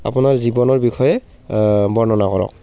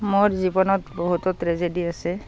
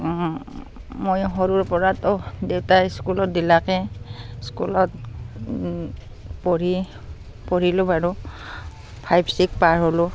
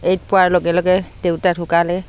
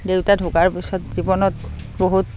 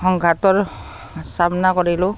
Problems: constant background noise